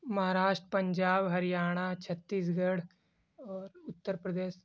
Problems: constant background noise